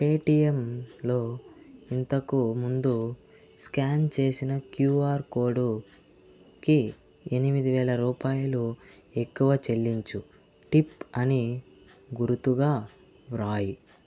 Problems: constant background noise